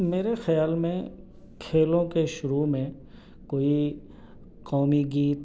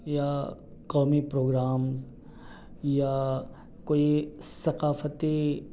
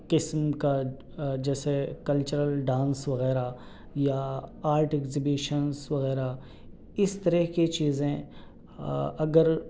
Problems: none marked